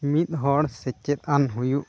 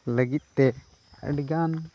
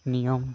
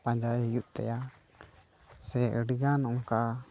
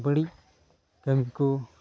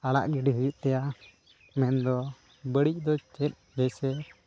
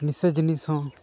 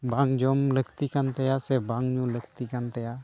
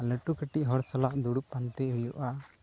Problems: background sounds at intervals